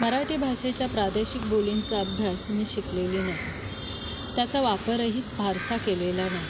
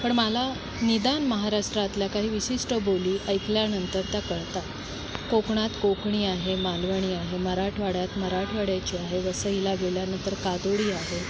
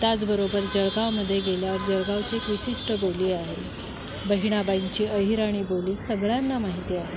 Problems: none marked